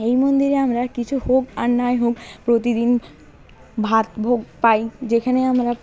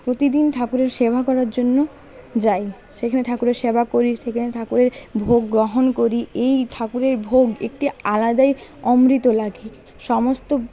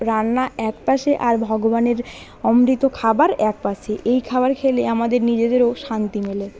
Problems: constant background noise, continuous background conversations